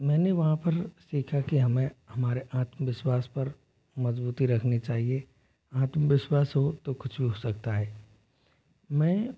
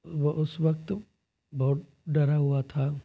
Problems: constant background noise, low volume